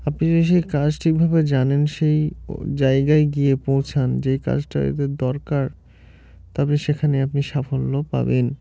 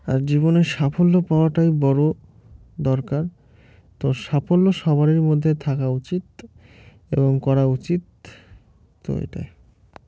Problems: constant background noise